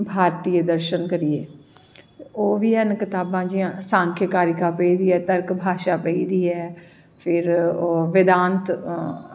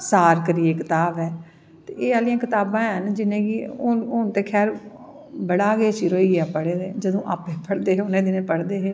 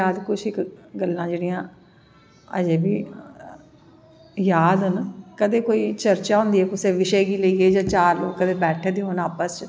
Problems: echo